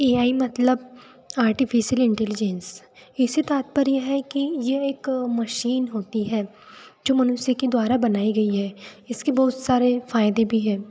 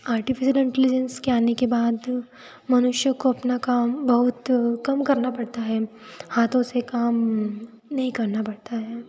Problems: constant background noise